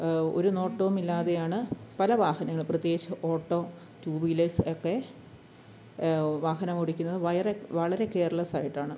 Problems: background sounds at intervals, low volume